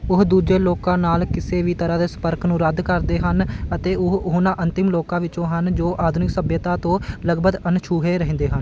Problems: constant background noise